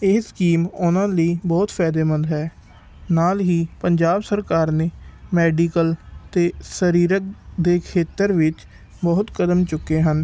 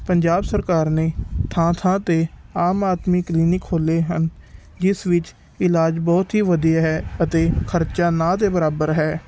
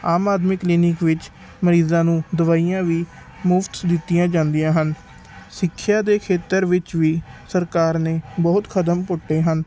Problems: background sounds at intervals